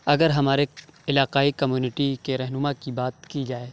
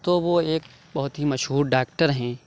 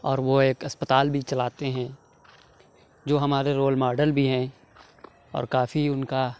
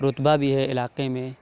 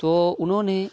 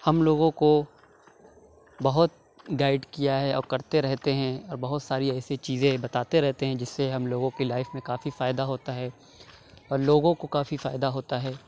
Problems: none marked